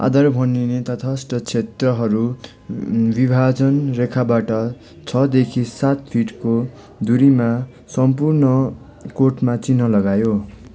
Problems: none marked